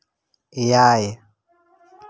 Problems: background sounds at intervals